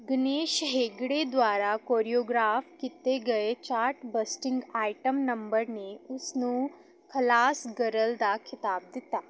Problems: background sounds at intervals